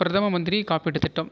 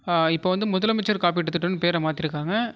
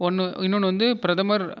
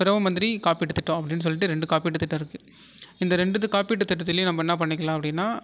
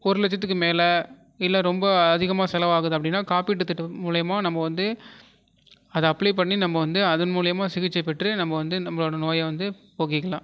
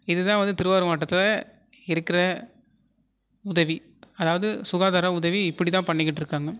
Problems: none marked